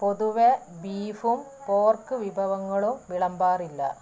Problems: low volume